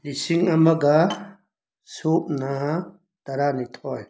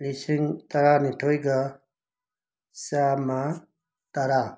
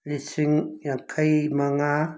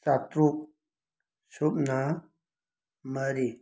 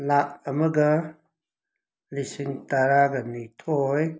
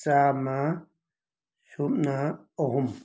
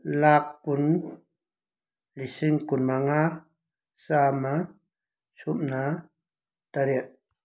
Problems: background sounds at intervals